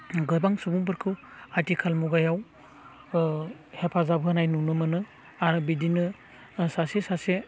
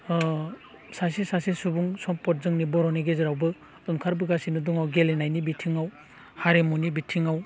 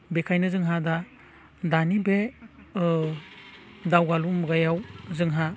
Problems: none marked